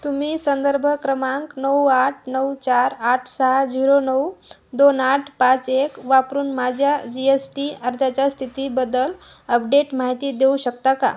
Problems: constant background noise, echo